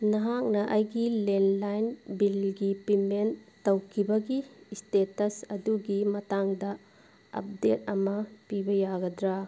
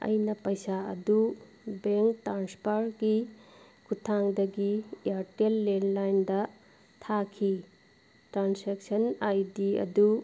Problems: none marked